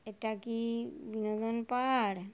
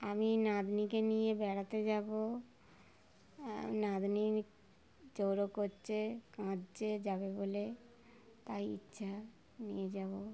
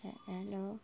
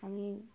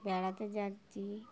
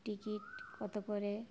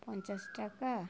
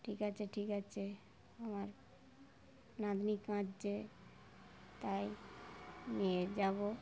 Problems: constant background noise, continuous background conversations